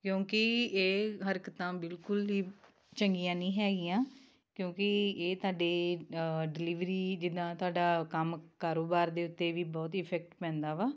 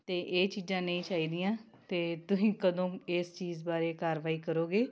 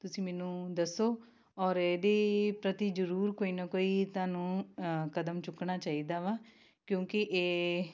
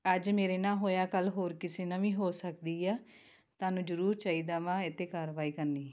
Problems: none marked